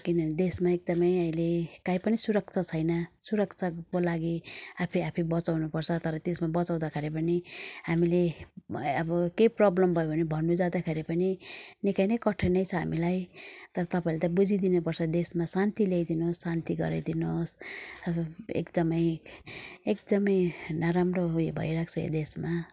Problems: none marked